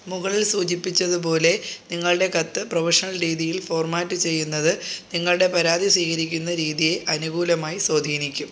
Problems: constant background noise